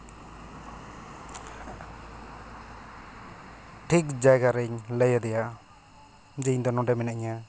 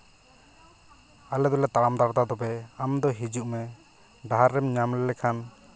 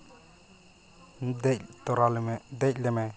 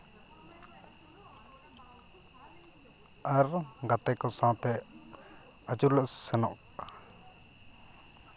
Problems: constant background noise, continuous background conversations